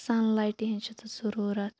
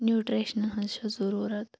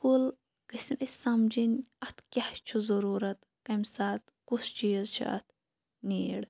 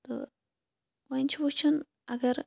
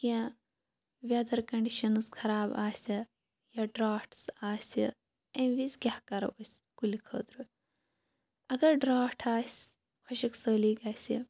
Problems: none marked